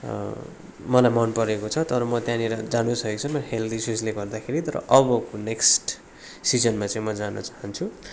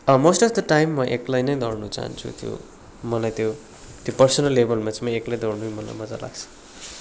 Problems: background sounds at intervals